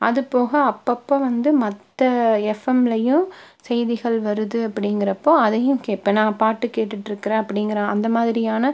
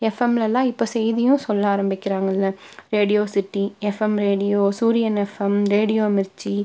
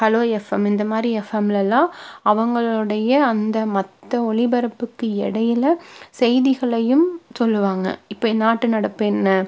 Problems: none marked